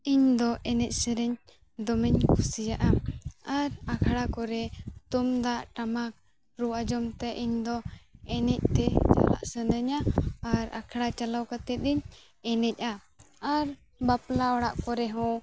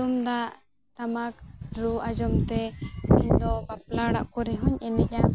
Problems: background sounds at intervals